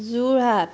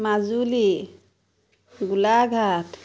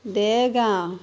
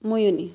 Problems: constant background noise